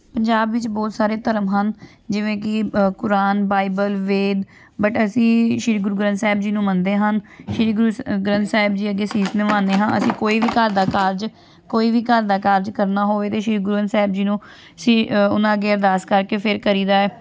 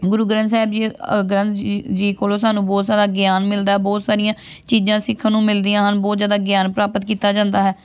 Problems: none marked